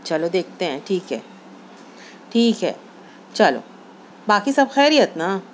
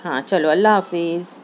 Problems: none marked